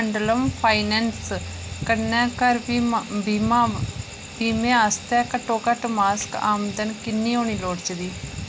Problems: constant background noise